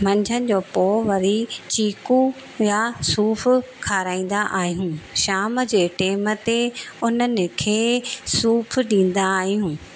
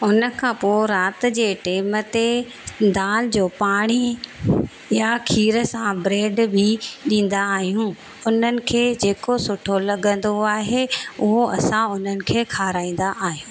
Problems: constant background noise